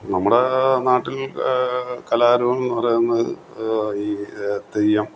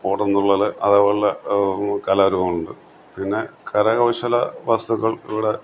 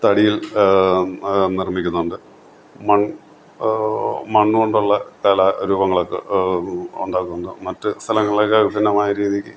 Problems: constant background noise